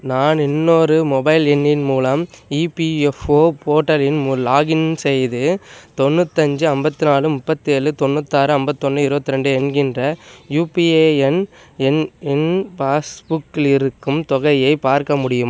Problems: none marked